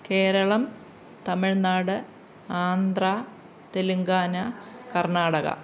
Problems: background sounds at intervals